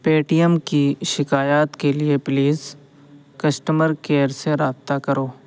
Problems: constant background noise